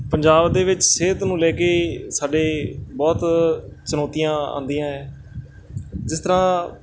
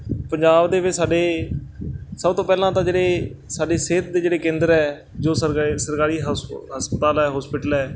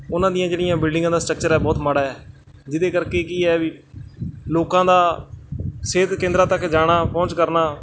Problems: constant background noise